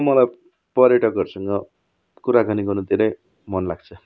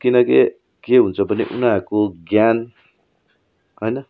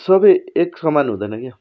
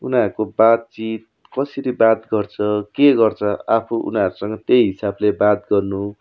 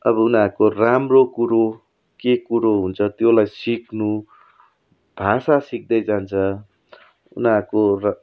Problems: none marked